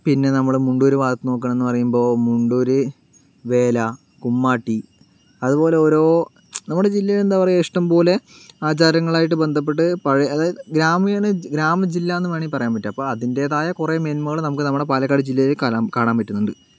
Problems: background sounds at intervals